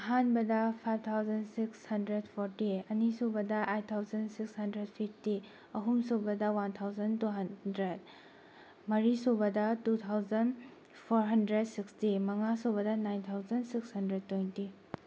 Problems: background sounds at intervals